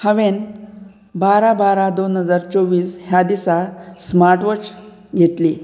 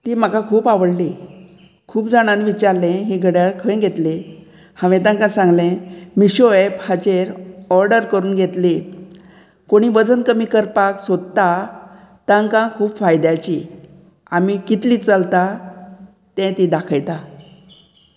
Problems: constant background noise